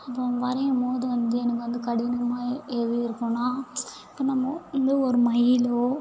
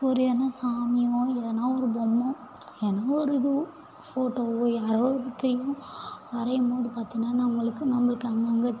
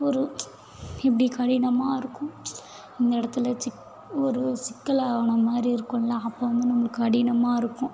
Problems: none marked